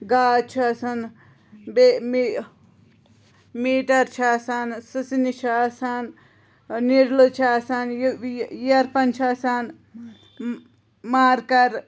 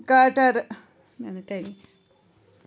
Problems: constant background noise